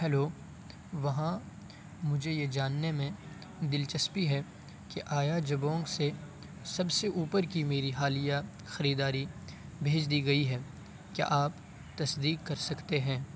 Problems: constant background noise